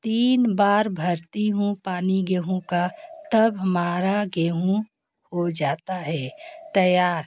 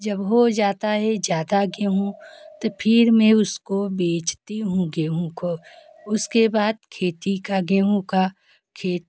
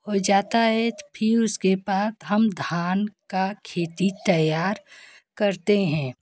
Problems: constant background noise, continuous background conversations